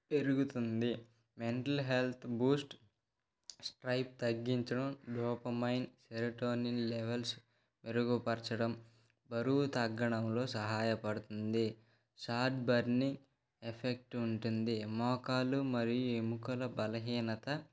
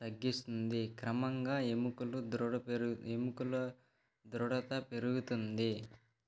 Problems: background conversations at intervals